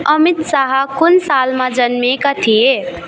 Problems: constant background noise